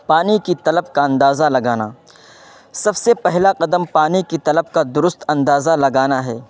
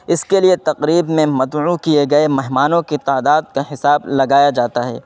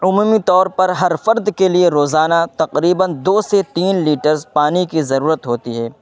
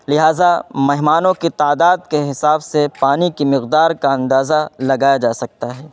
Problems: constant background noise